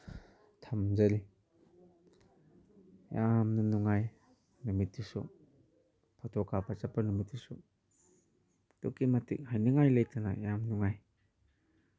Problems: none marked